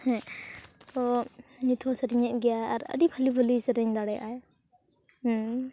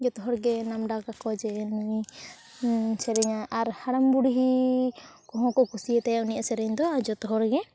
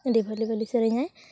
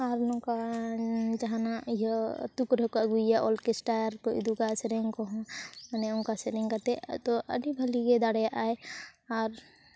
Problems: continuous background conversations